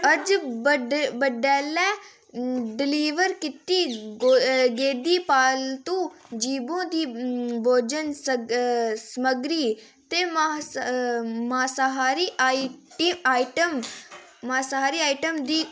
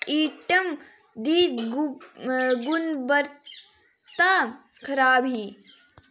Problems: constant background noise